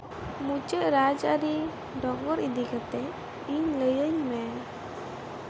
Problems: constant background noise